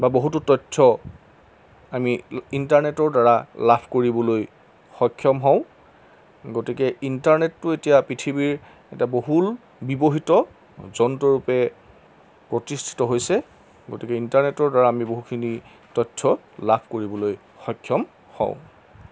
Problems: constant background noise